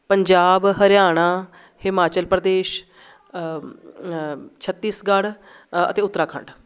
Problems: none marked